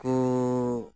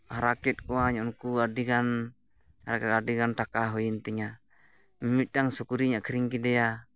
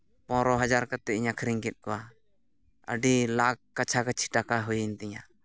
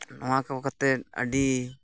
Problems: background sounds at intervals